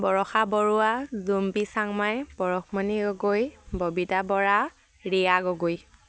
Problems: background sounds at intervals